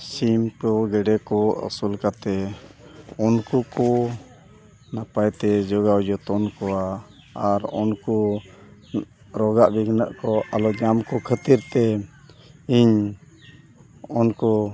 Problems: continuous background conversations